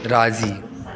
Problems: constant background noise, echo